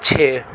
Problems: constant background noise